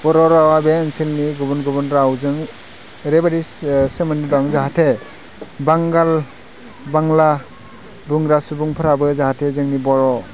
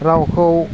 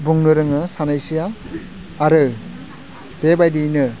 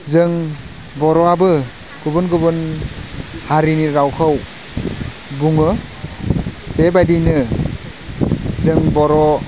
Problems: constant background noise